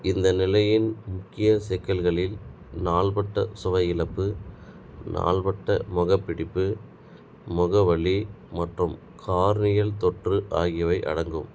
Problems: none marked